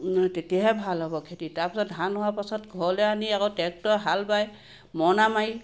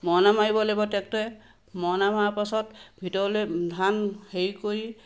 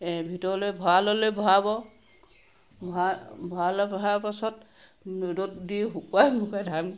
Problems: constant background noise